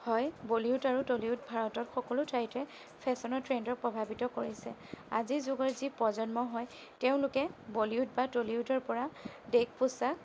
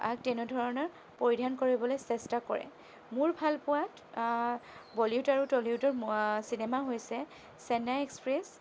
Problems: none marked